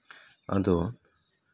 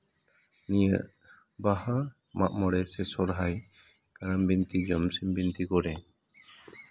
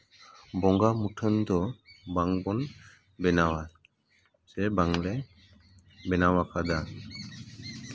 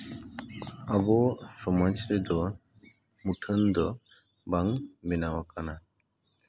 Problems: none marked